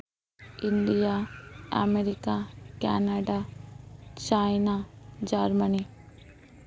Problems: constant background noise, continuous background conversations